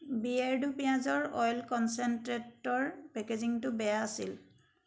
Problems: background sounds at intervals